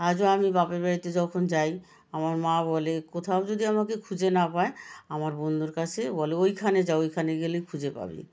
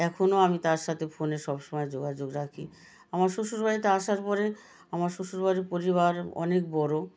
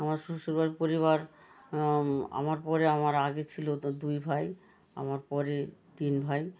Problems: none marked